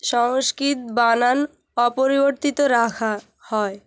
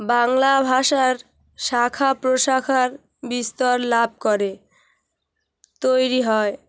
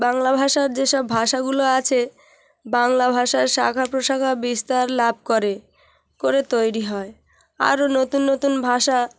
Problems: constant background noise